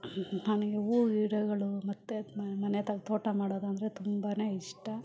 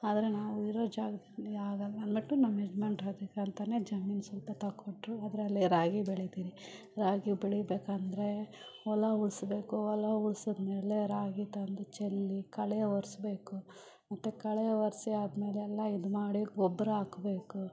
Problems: none marked